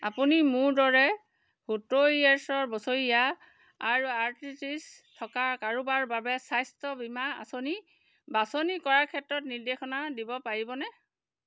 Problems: background sounds at intervals